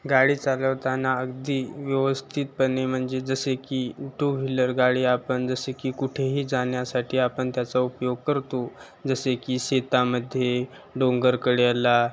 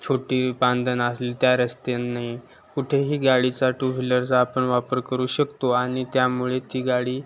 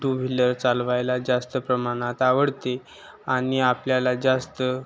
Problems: constant background noise, continuous background conversations